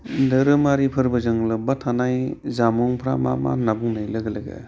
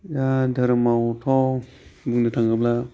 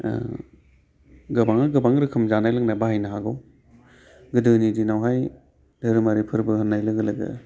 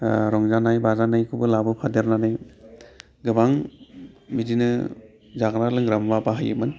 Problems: constant background noise